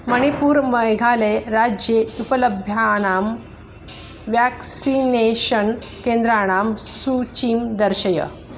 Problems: constant background noise